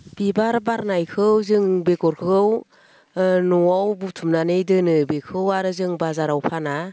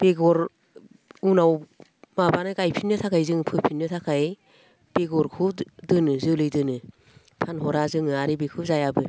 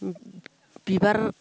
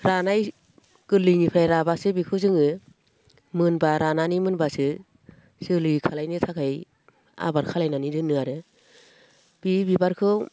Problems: none marked